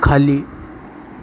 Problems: none marked